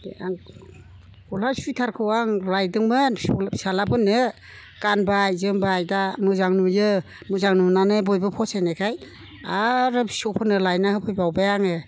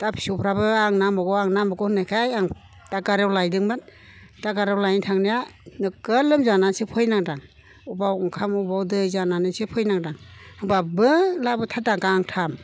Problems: constant background noise